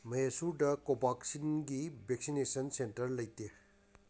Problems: none marked